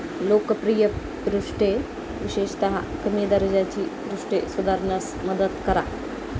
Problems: constant background noise